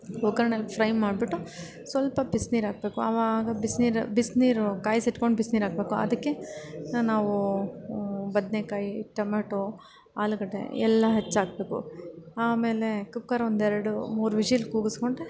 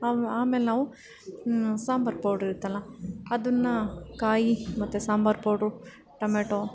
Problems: background sounds at intervals